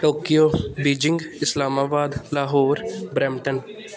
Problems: constant background noise